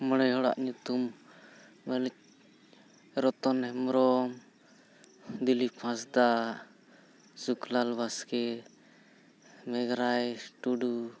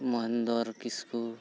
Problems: none marked